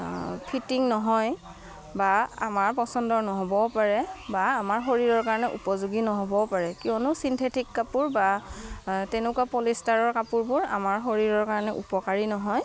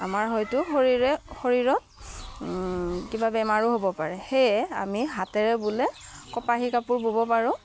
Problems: background sounds at intervals